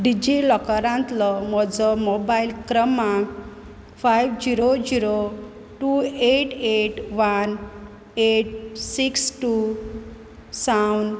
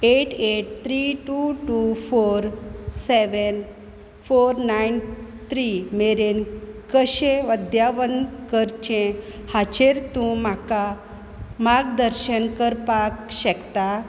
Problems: constant background noise